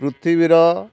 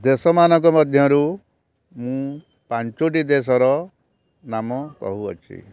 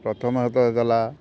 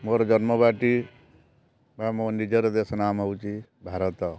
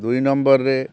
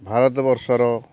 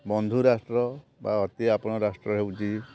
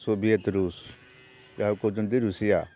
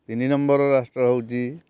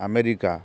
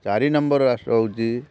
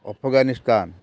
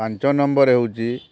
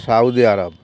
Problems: none marked